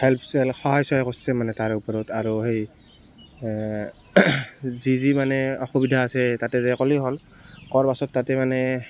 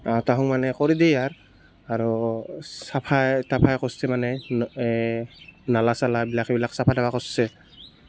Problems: constant background noise